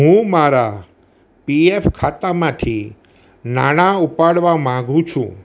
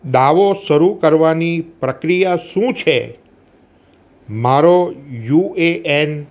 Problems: none marked